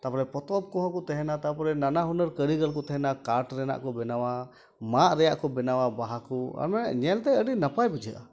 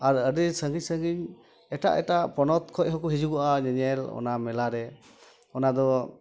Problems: constant background noise, continuous background conversations